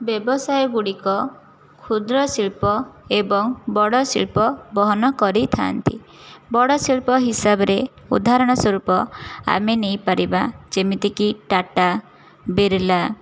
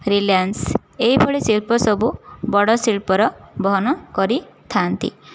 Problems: none marked